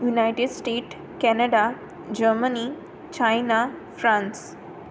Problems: background sounds at intervals